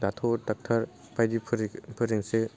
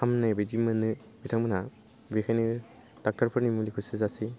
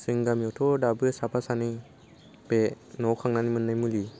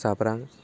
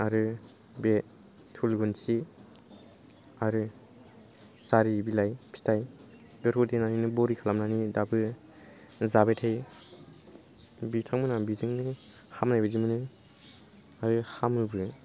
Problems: none marked